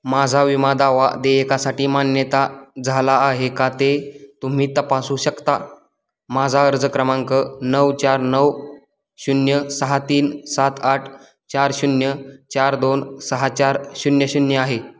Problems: none marked